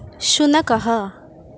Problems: constant background noise